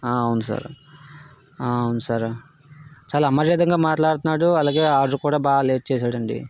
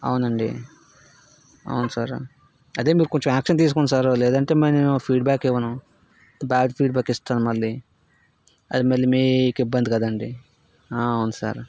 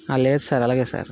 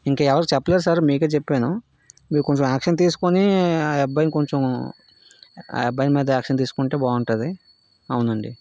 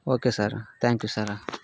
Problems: constant background noise